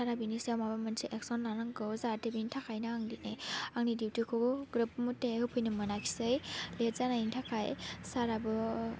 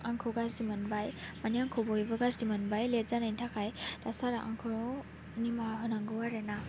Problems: constant background noise